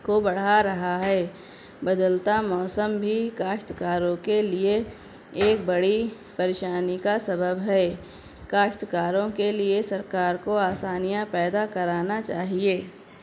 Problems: constant background noise, low volume